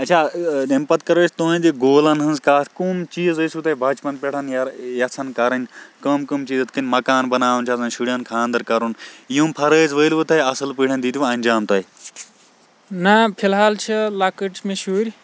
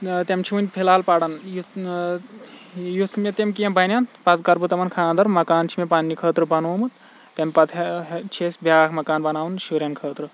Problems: constant background noise